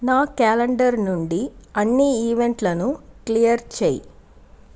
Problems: constant background noise